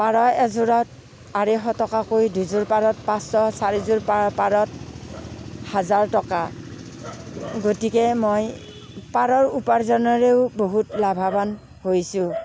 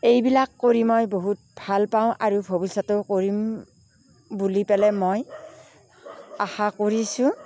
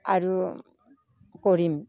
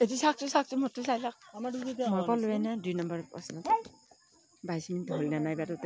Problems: background sounds at intervals, background conversations at intervals